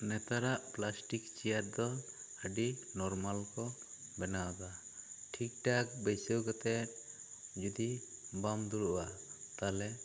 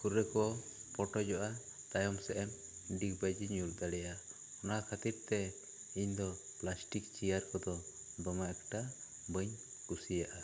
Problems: constant background noise